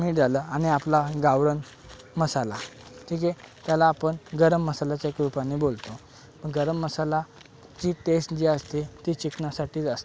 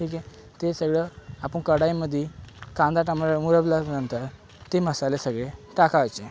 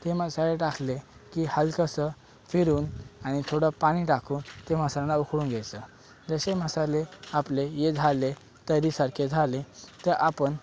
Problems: constant background noise